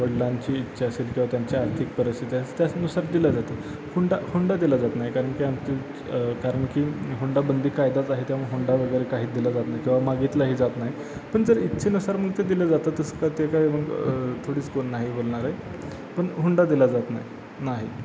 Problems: constant background noise